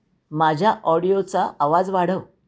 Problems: constant background noise